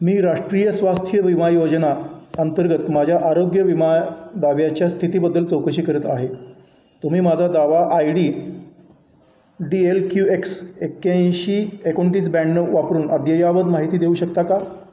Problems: none marked